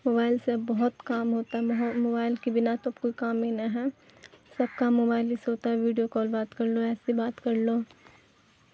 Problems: constant background noise